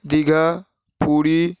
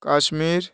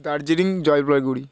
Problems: constant background noise